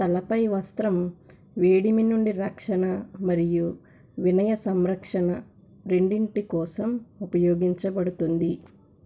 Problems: constant background noise